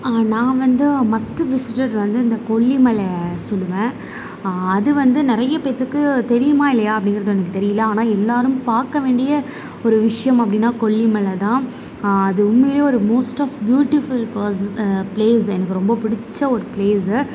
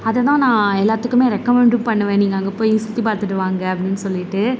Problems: constant background noise